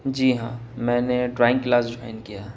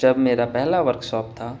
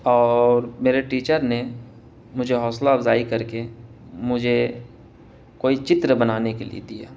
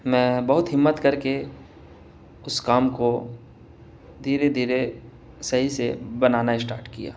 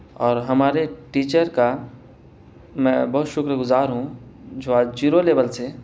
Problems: none marked